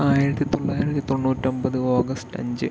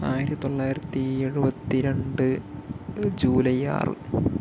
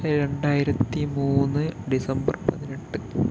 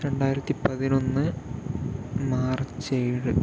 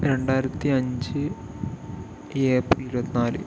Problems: constant background noise